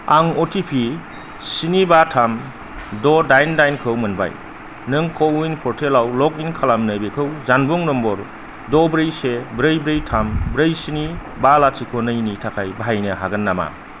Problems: constant background noise, low volume